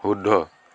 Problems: none marked